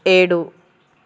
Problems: constant background noise